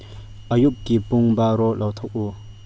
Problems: low volume